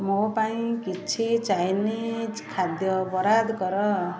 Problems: constant background noise, continuous background conversations